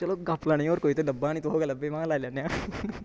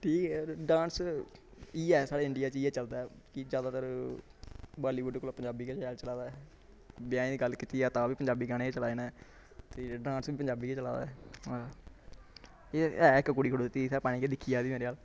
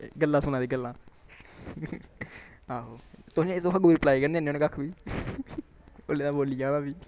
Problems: background conversations at intervals